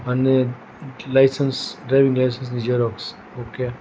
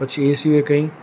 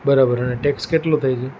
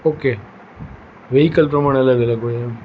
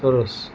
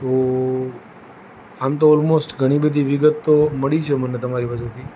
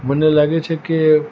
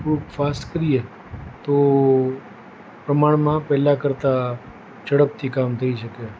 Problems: none marked